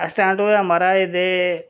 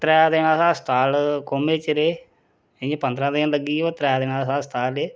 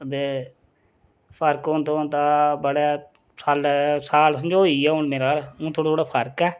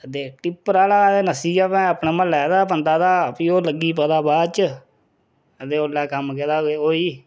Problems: none marked